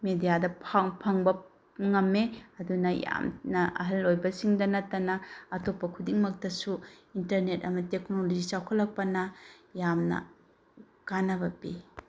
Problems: constant background noise